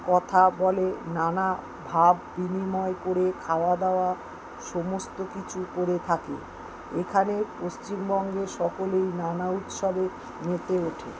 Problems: constant background noise